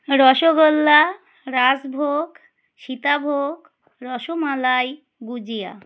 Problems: constant background noise